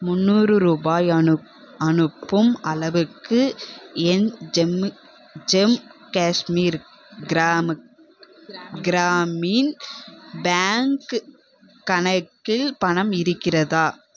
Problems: background conversations at intervals